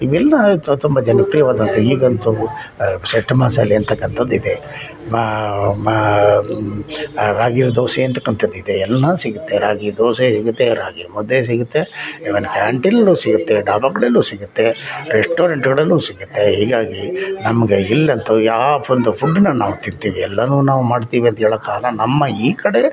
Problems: background conversations at intervals